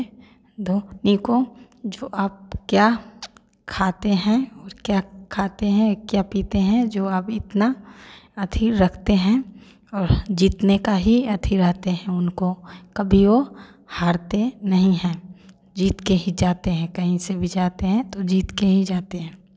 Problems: none marked